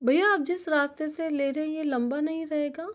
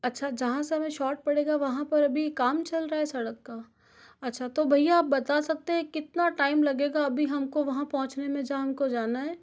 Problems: none marked